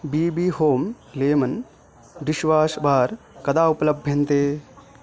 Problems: background conversations at intervals